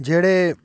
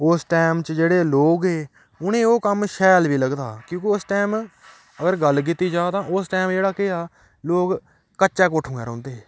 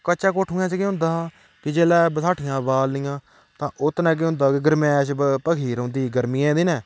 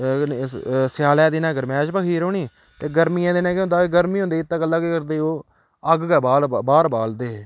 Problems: none marked